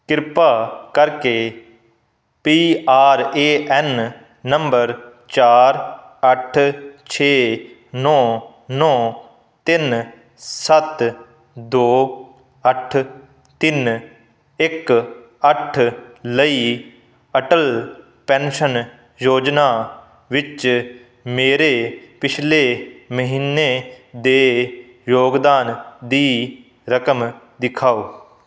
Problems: none marked